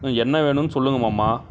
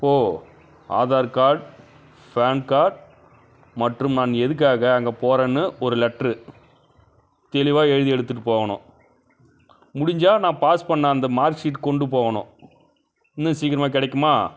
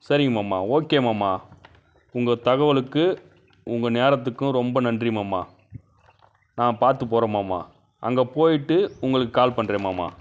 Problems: background sounds at intervals, background conversations at intervals